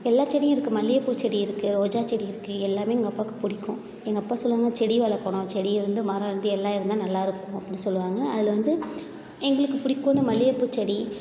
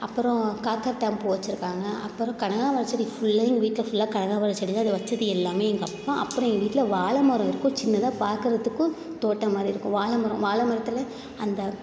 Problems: constant background noise